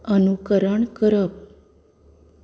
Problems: none marked